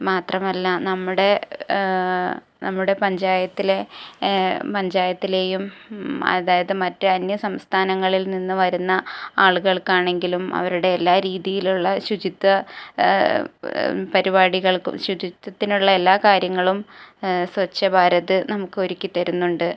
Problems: low volume